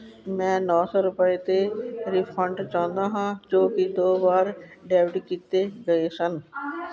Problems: continuous background conversations